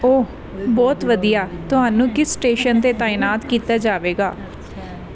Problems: background conversations at intervals